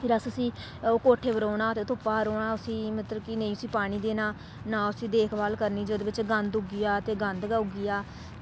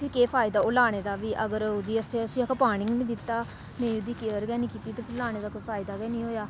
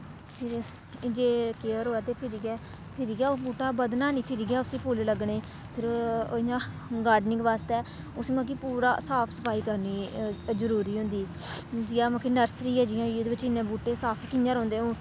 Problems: constant background noise